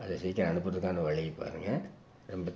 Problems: background sounds at intervals